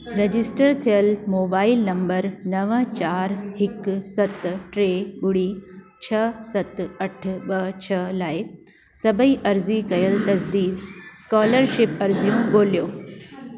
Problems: background sounds at intervals, echo